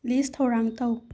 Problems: low volume